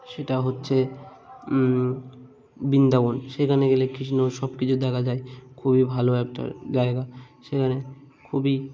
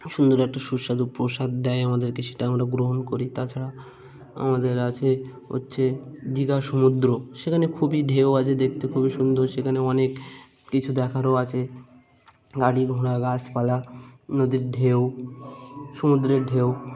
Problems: constant background noise, background conversations at intervals